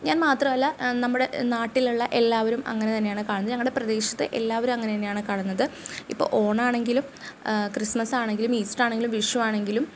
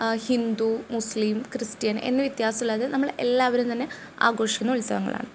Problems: none marked